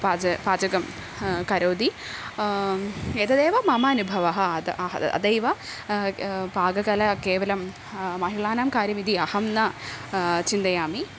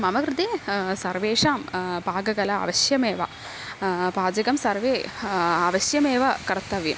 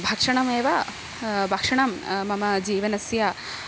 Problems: constant background noise